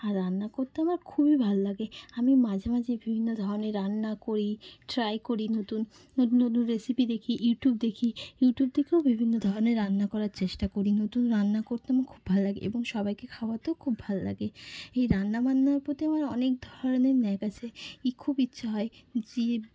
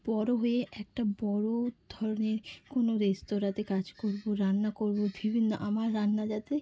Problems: constant background noise